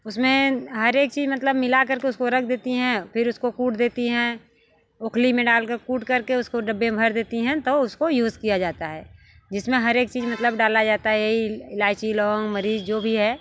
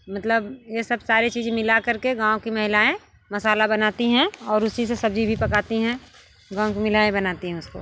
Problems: constant background noise